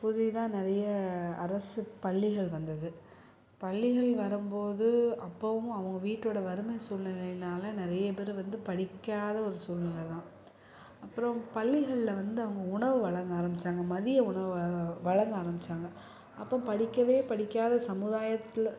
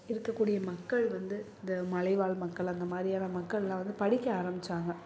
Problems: none marked